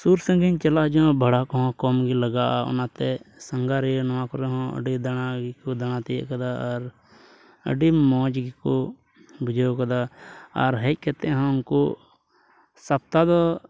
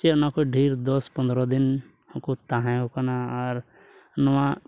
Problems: none marked